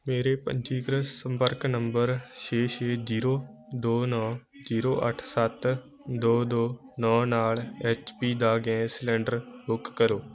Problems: constant background noise